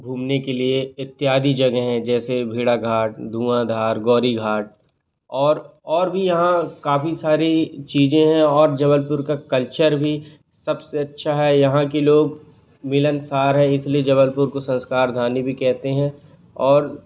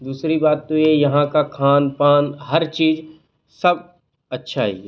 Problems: constant background noise